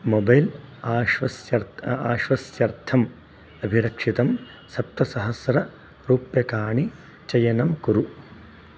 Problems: none marked